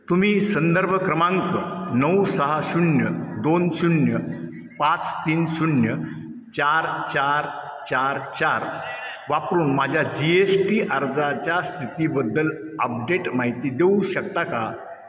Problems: echo